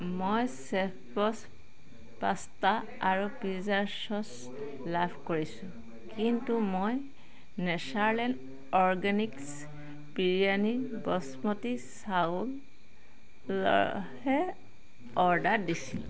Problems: constant background noise, background conversations at intervals